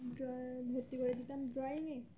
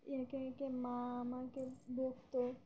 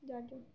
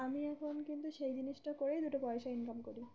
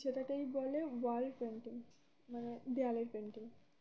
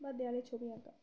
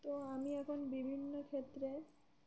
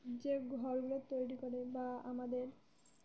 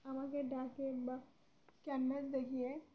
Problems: none marked